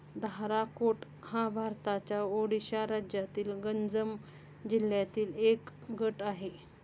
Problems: constant background noise